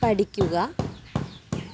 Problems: background sounds at intervals